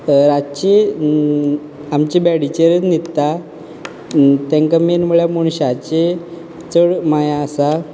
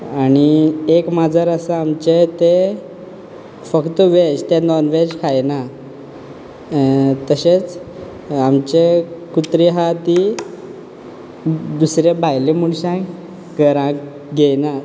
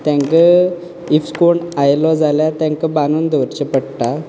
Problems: background conversations at intervals